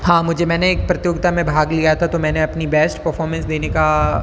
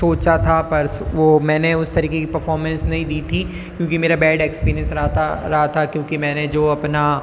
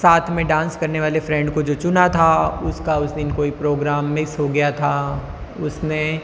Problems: constant background noise, background conversations at intervals